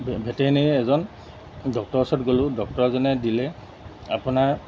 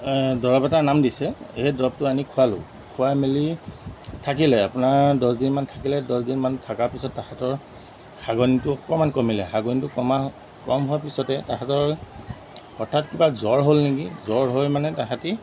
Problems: constant background noise